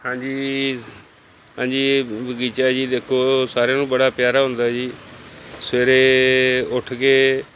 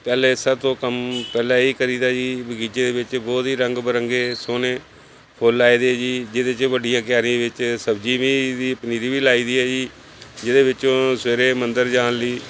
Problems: background sounds at intervals